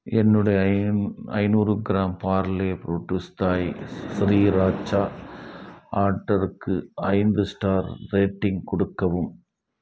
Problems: background sounds at intervals